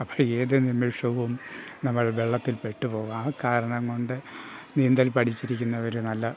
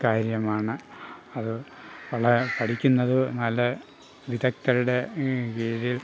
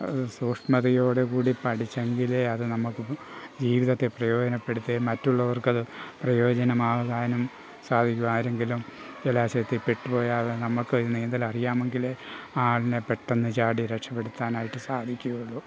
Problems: none marked